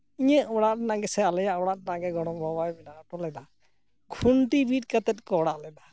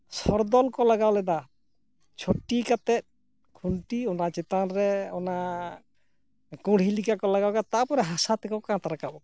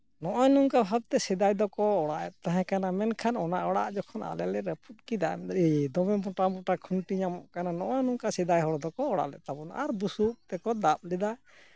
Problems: none marked